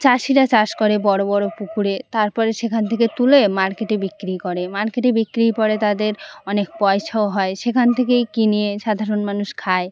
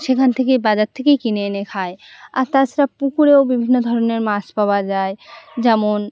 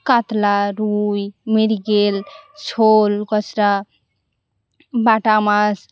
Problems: none marked